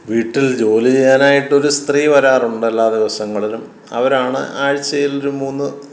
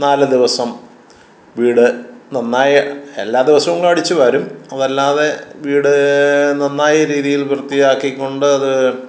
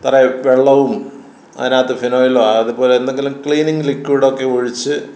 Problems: none marked